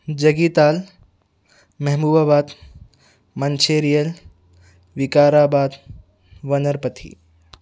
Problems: none marked